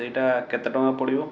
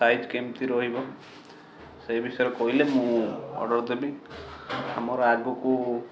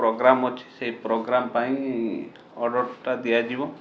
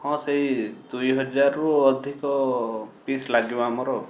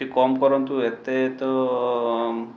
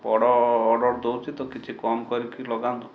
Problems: background sounds at intervals